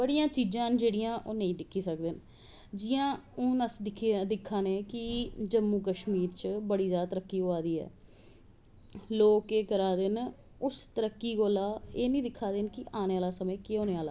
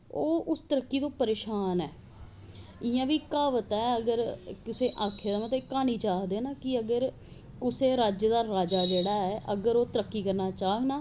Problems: none marked